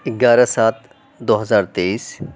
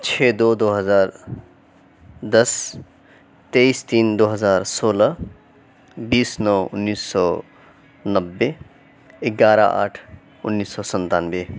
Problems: none marked